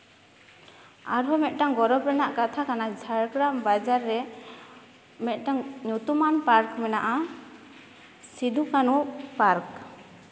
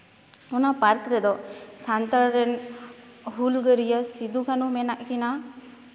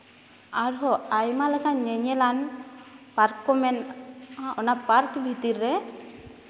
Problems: background sounds at intervals, continuous background conversations